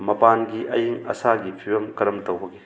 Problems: background sounds at intervals, background conversations at intervals